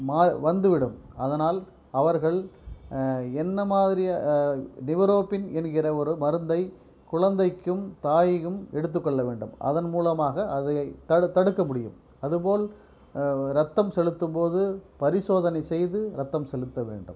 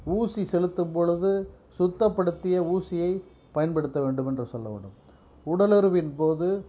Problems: background sounds at intervals